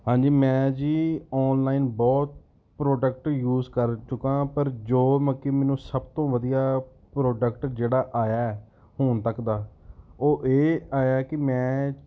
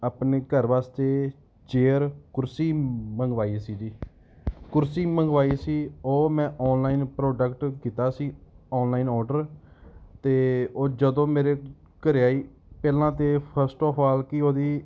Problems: background sounds at intervals